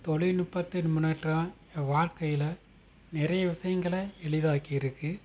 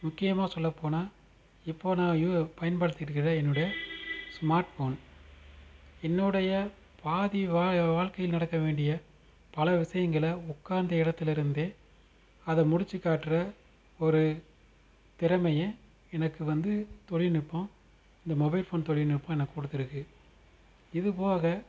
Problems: constant background noise